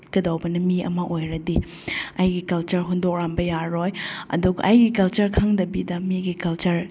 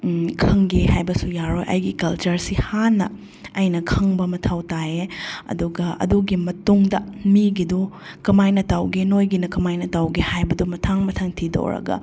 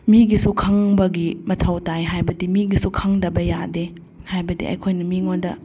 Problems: none marked